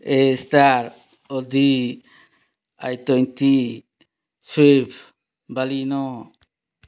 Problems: none marked